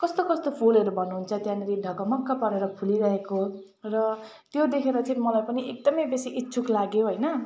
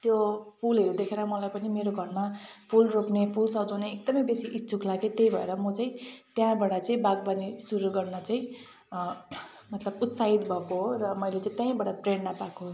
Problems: background sounds at intervals